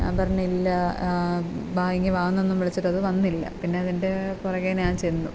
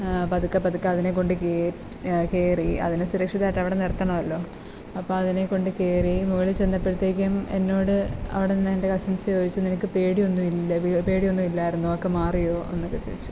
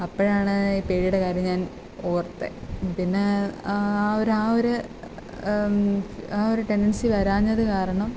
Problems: constant background noise